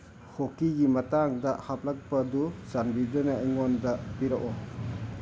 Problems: constant background noise